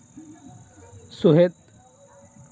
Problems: constant background noise, continuous background conversations